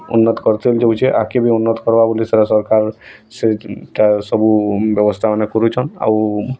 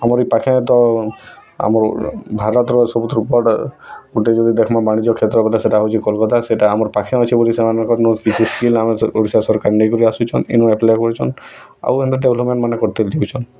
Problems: constant background noise